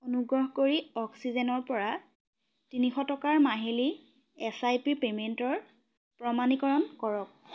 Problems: none marked